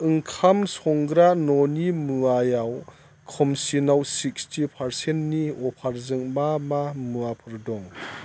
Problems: constant background noise